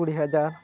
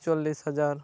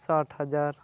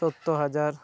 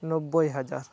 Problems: background sounds at intervals